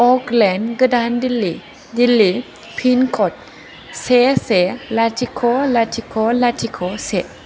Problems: constant background noise